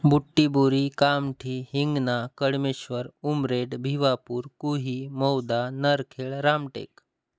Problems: constant background noise